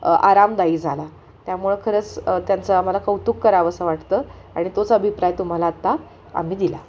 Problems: none marked